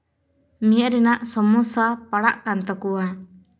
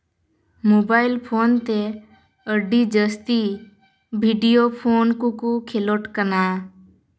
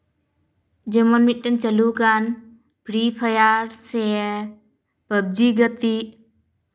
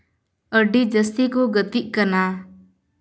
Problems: none marked